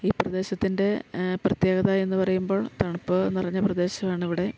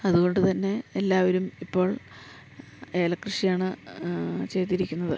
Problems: none marked